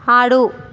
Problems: constant background noise